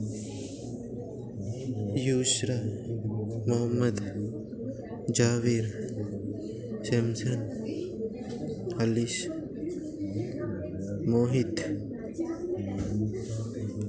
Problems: constant background noise, background conversations at intervals